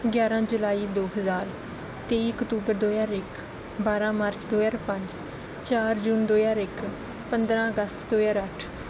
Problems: none marked